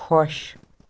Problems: none marked